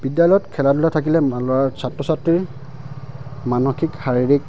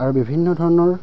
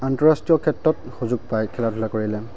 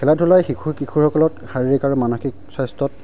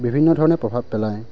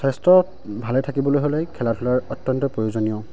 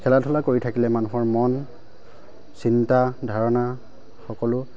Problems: constant background noise